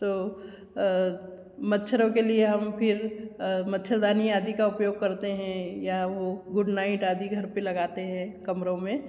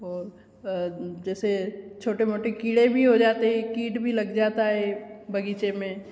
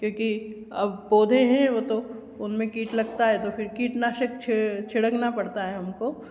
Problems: background sounds at intervals, echo